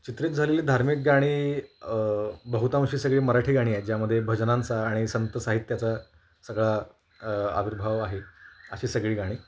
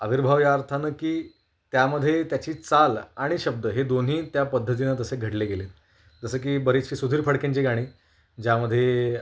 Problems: none marked